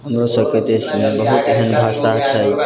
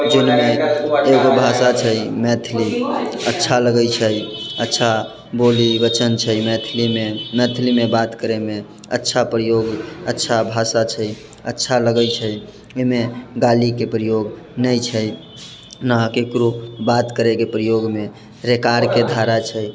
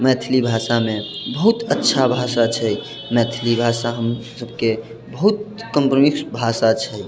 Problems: constant background noise